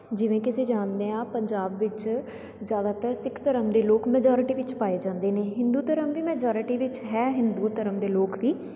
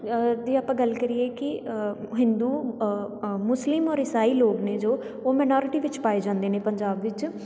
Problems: background sounds at intervals